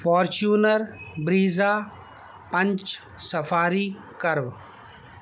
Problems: constant background noise